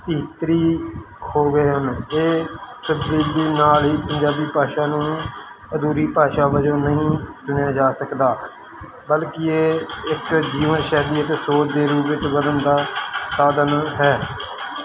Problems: none marked